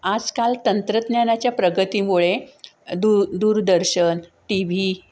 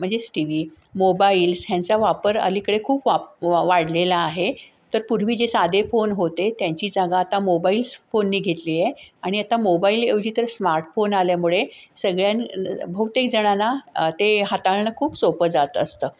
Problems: background sounds at intervals